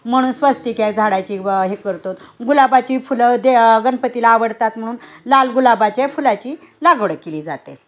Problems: background sounds at intervals